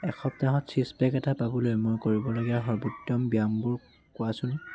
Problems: none marked